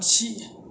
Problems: none marked